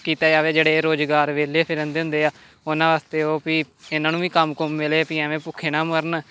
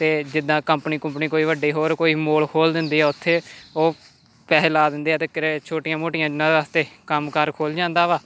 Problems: constant background noise